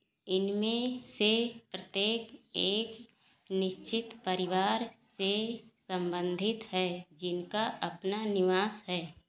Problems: none marked